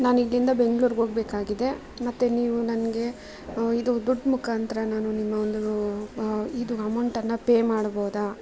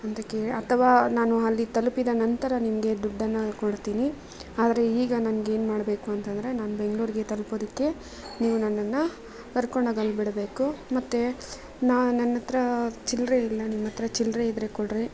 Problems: background conversations at intervals